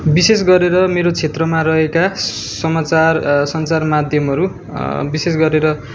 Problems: background sounds at intervals